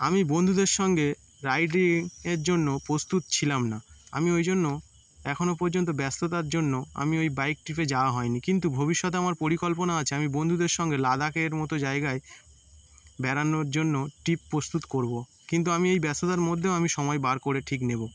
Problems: none marked